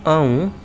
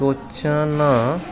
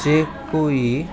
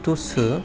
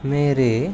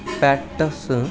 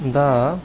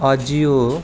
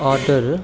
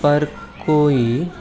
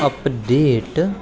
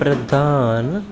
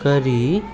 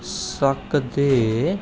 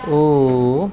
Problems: constant background noise